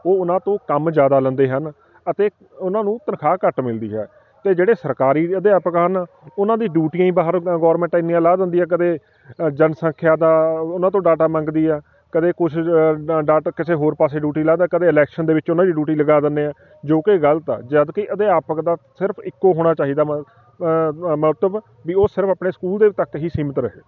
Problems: constant background noise